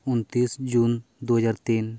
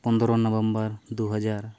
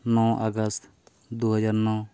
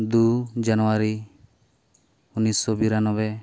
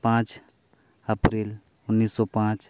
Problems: none marked